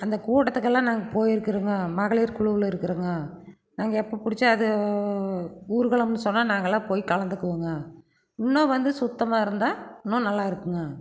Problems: background sounds at intervals